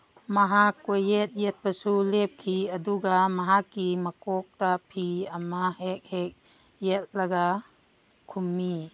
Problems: background sounds at intervals